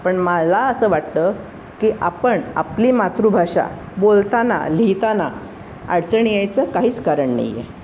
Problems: constant background noise